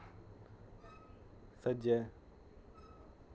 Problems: constant background noise